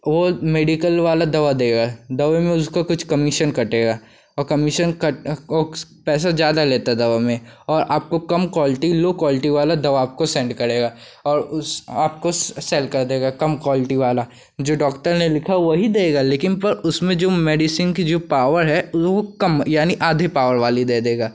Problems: constant background noise